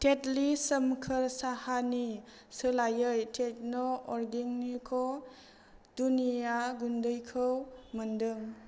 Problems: constant background noise